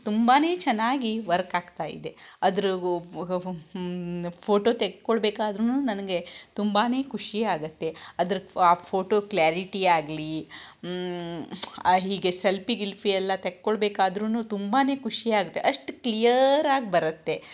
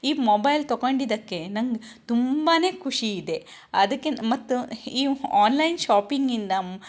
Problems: none marked